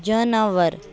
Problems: constant background noise